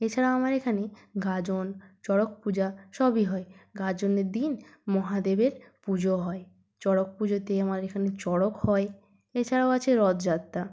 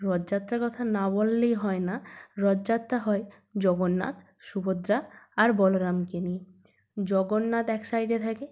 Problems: none marked